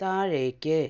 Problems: low volume